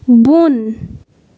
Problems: background sounds at intervals